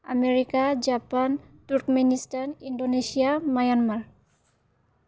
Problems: constant background noise